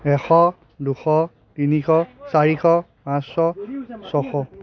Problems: background conversations at intervals